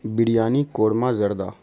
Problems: constant background noise